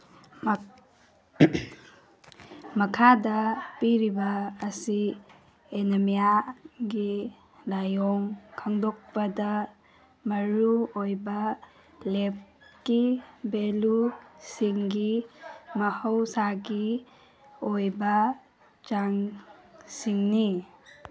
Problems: background sounds at intervals